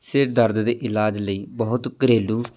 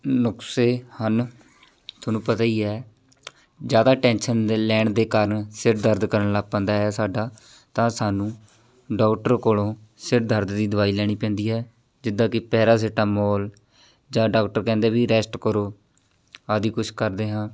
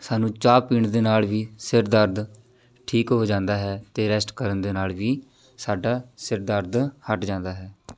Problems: none marked